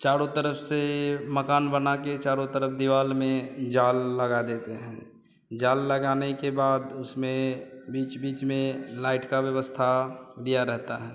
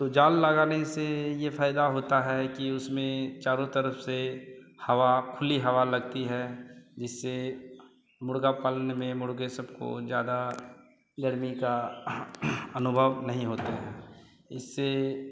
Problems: none marked